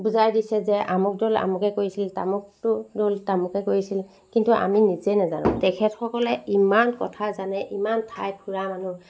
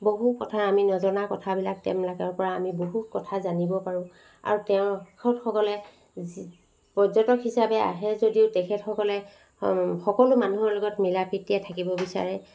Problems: constant background noise